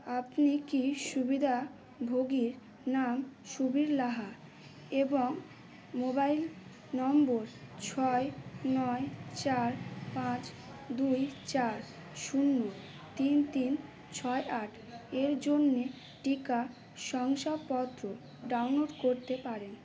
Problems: constant background noise